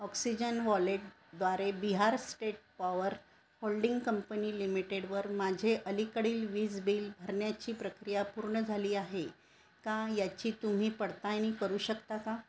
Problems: none marked